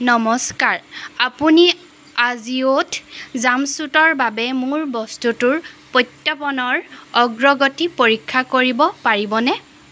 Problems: background sounds at intervals